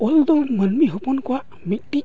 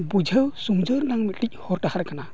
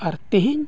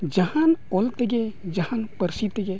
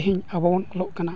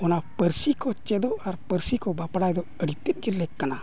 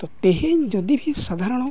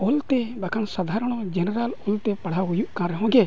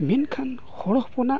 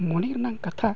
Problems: none marked